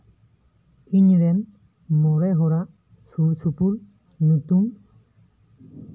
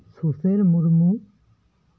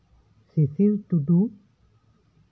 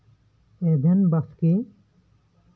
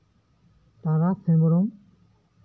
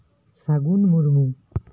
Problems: none marked